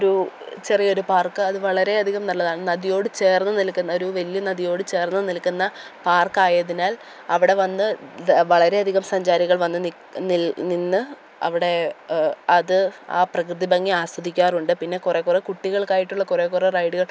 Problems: background sounds at intervals